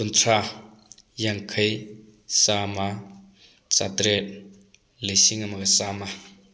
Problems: none marked